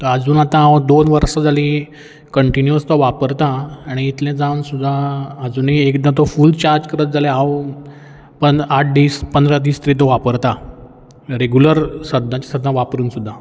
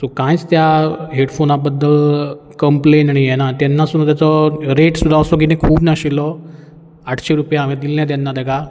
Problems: none marked